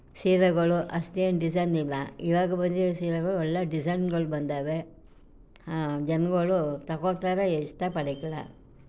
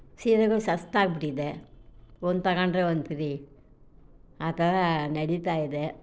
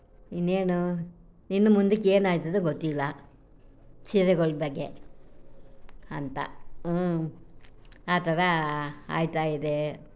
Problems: none marked